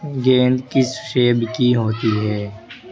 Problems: constant background noise